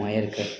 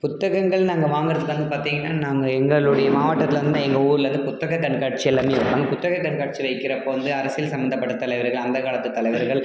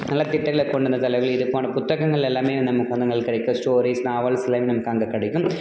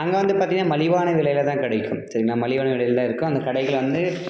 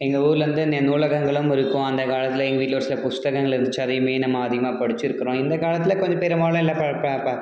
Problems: background sounds at intervals